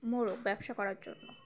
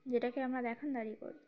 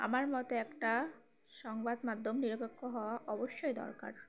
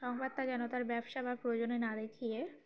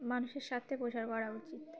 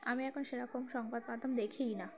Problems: background sounds at intervals, background conversations at intervals, low volume